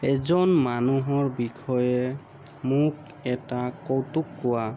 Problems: constant background noise